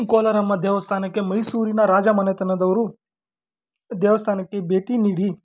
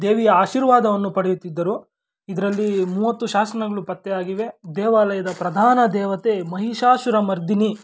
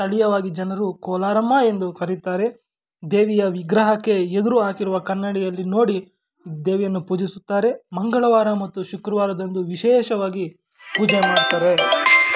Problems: background sounds at intervals